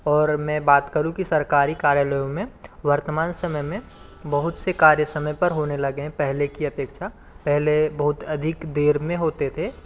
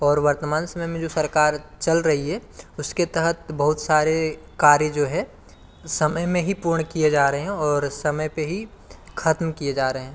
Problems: none marked